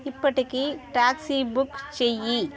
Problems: constant background noise, continuous background conversations